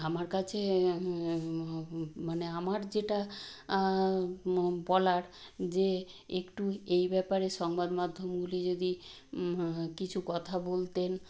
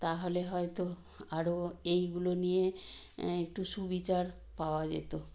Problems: constant background noise